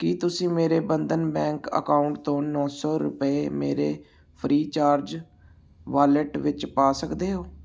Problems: none marked